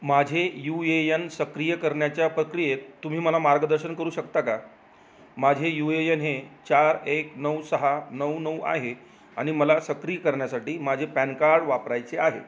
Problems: none marked